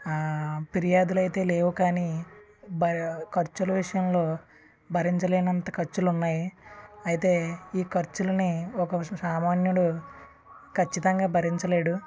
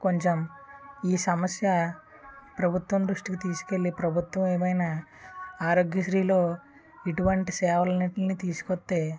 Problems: constant background noise, continuous background conversations